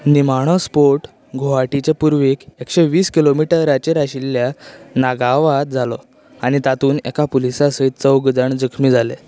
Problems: constant background noise